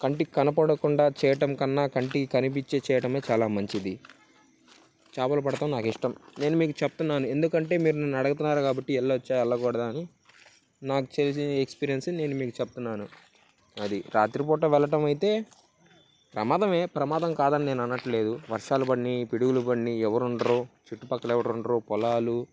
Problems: none marked